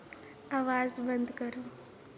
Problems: low volume